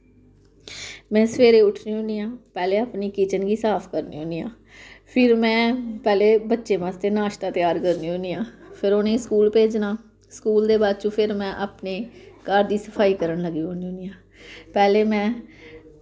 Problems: constant background noise